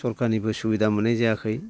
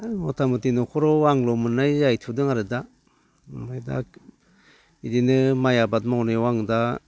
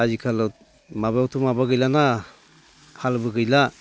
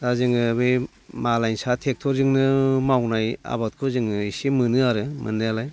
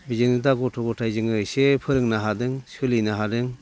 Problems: constant background noise